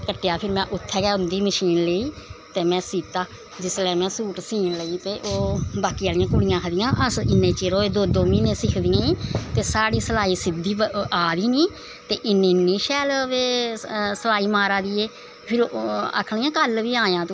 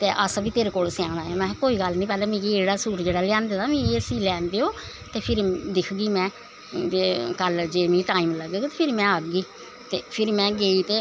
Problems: constant background noise